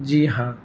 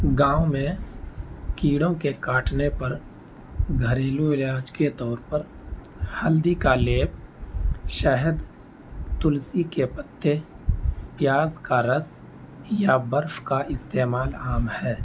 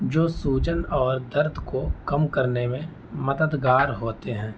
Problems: constant background noise